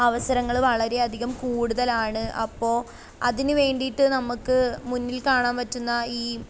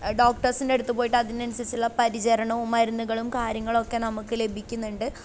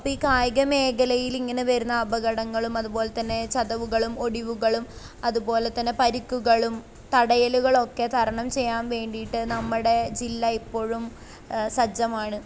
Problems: none marked